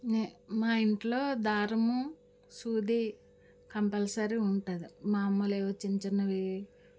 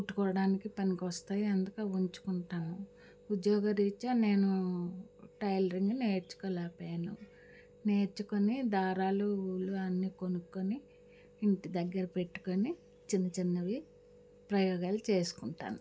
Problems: none marked